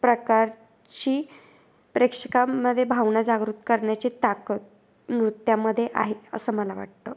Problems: constant background noise, background conversations at intervals